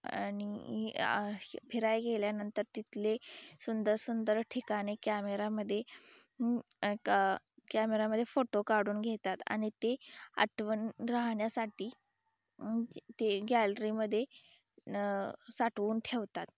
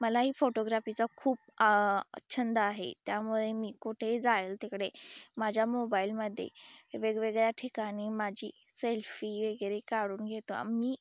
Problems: background sounds at intervals